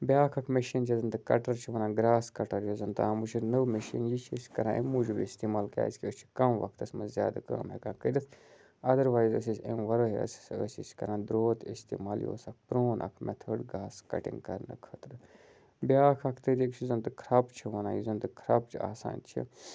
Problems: constant background noise